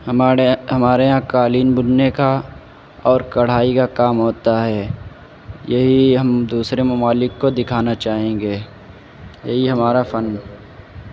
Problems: constant background noise